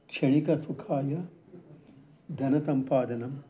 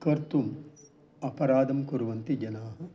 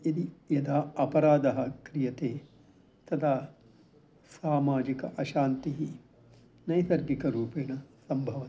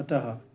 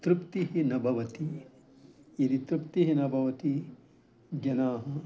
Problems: background conversations at intervals